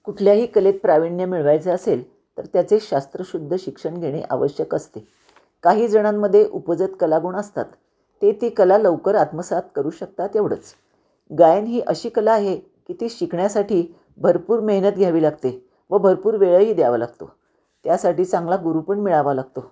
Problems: none marked